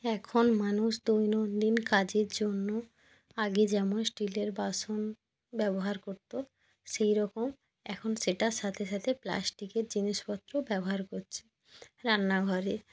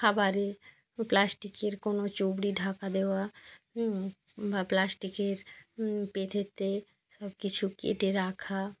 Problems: background sounds at intervals